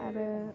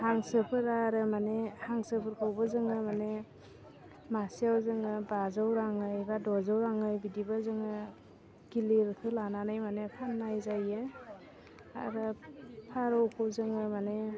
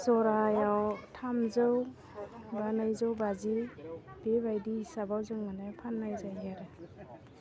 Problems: low volume